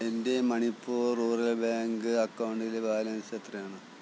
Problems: low volume